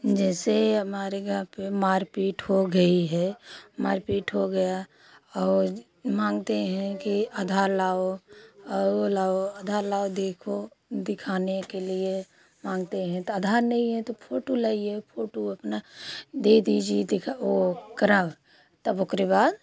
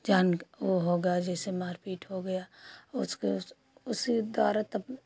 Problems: continuous background conversations